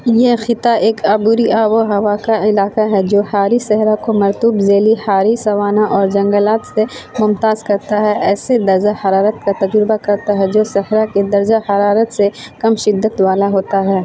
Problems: constant background noise